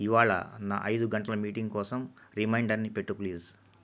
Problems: low volume